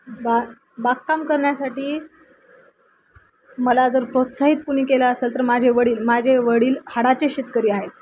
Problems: constant background noise